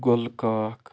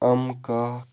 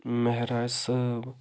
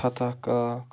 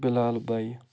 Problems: low volume